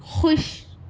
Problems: none marked